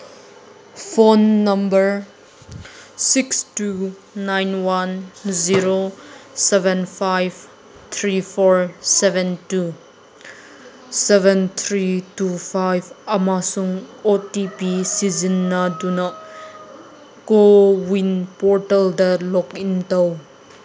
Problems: constant background noise